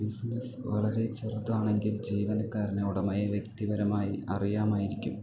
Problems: low volume